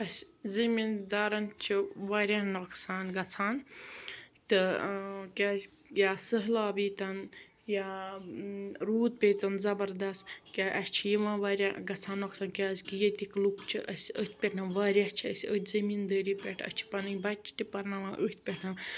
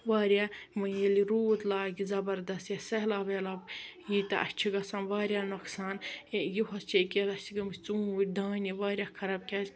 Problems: background sounds at intervals